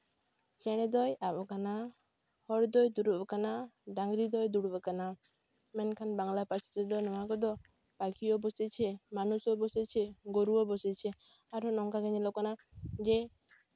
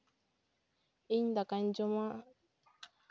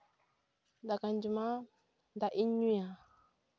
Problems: background sounds at intervals